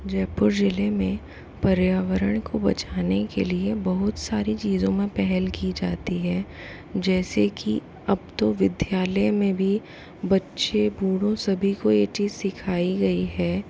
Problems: constant background noise, low volume